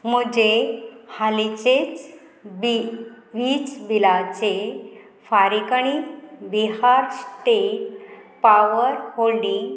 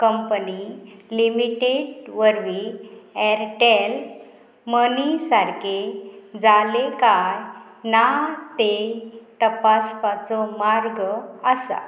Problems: none marked